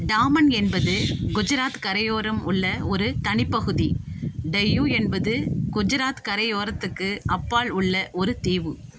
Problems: constant background noise